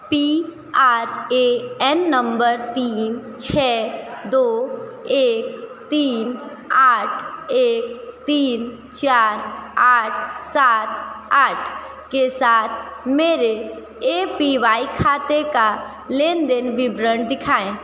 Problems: constant background noise